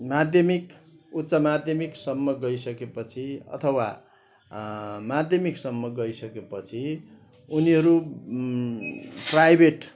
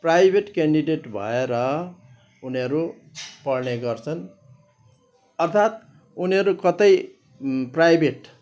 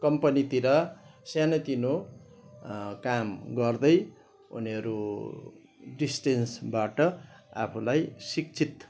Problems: background sounds at intervals